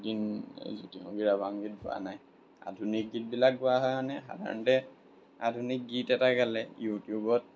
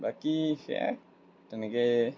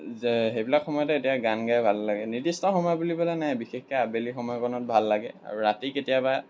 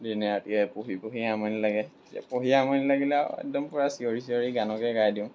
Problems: background sounds at intervals